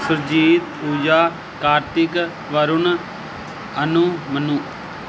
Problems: constant background noise